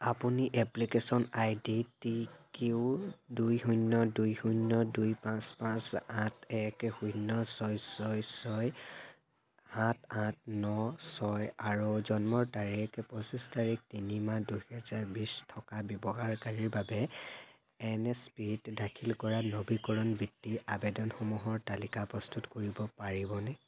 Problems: constant background noise